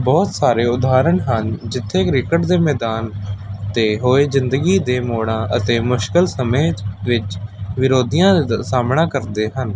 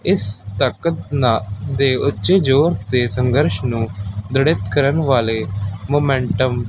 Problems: constant background noise